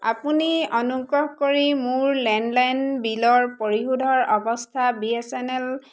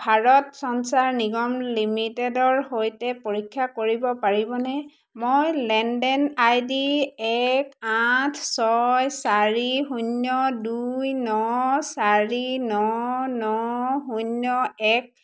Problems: none marked